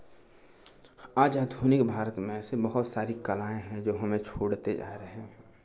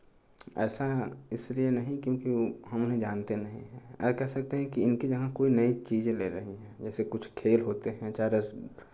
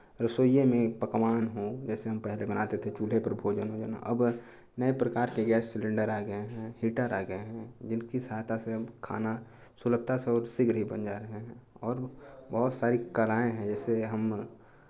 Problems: constant background noise